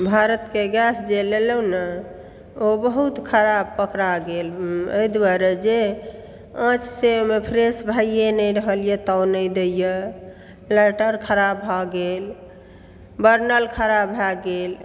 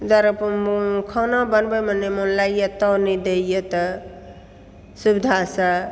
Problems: background sounds at intervals